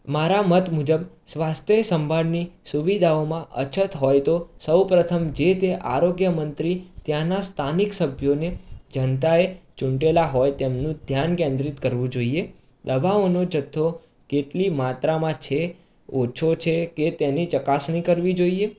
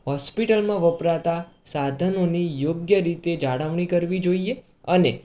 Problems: background sounds at intervals